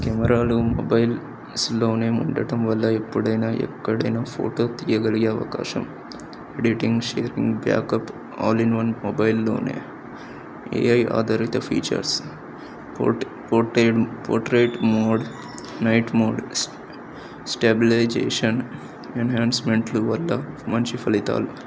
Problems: none marked